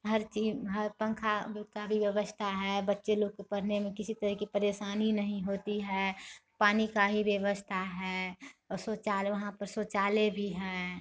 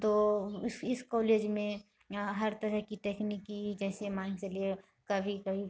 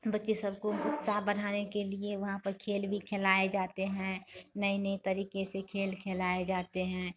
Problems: none marked